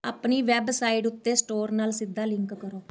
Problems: none marked